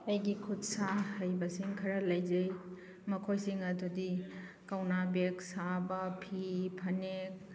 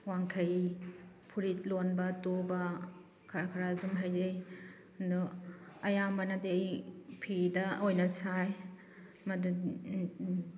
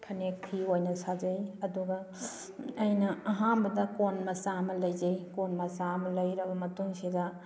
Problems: background sounds at intervals